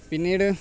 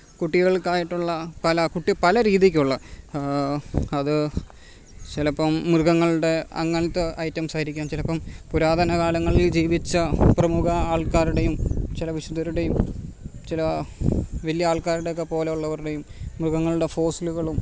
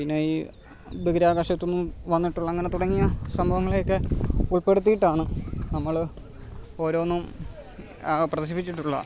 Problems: background sounds at intervals